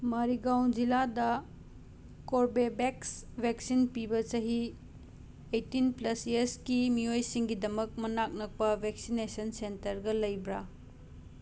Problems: constant background noise